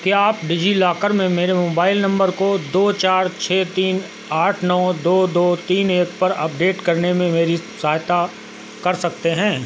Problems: constant background noise